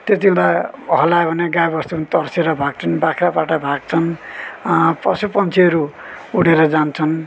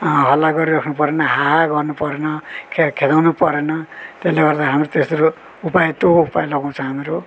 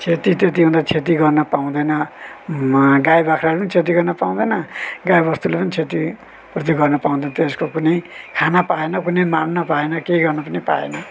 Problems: none marked